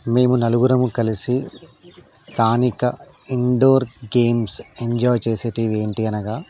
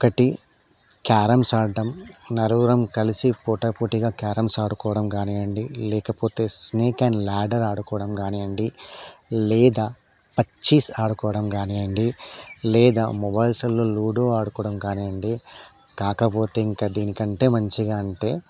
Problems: constant background noise